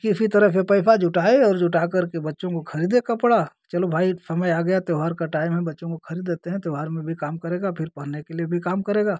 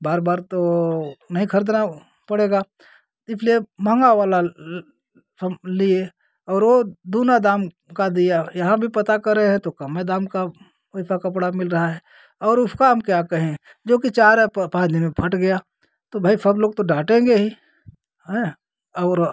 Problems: constant background noise